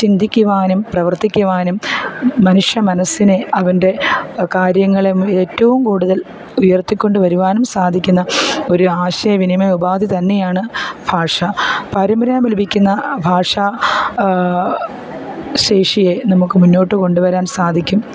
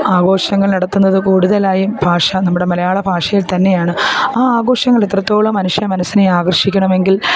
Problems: background sounds at intervals